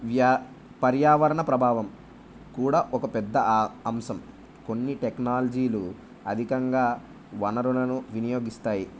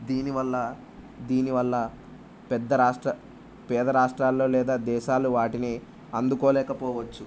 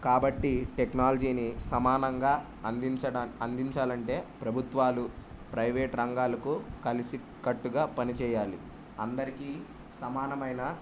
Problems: none marked